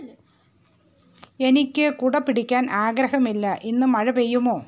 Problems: background sounds at intervals, background conversations at intervals